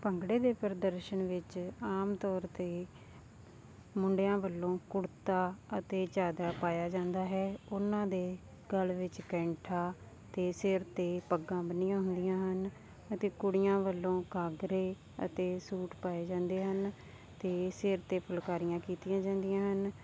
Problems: none marked